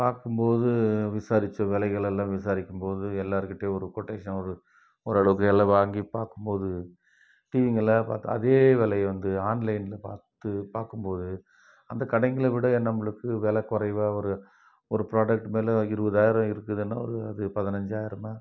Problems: none marked